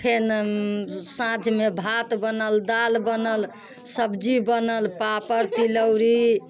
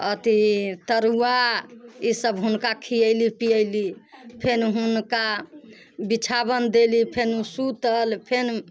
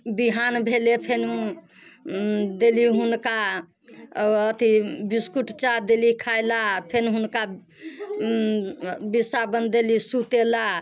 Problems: constant background noise